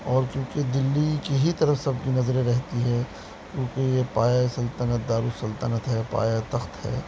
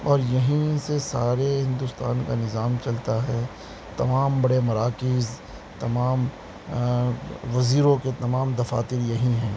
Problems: constant background noise